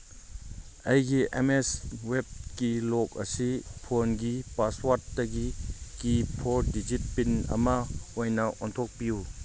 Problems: background sounds at intervals